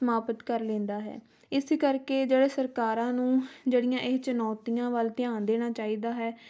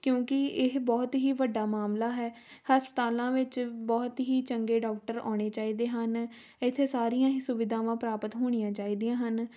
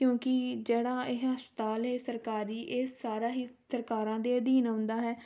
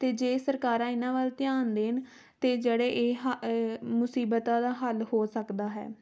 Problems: background sounds at intervals